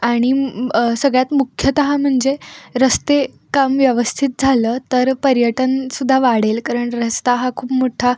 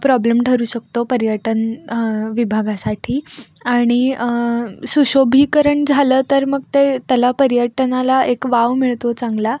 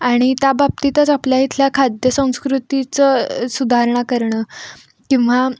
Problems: none marked